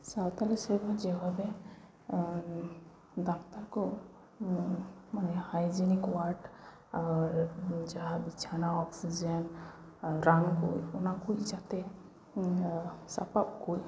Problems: none marked